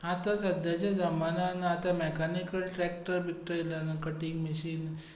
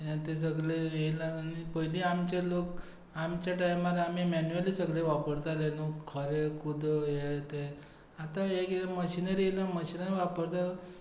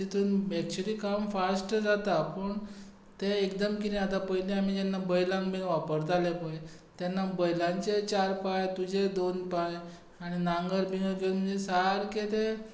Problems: constant background noise